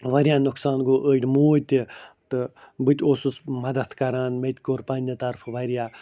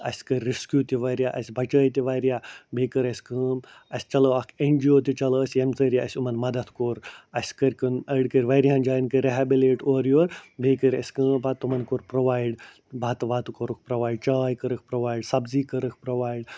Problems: none marked